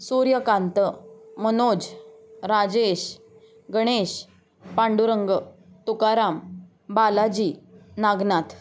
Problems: none marked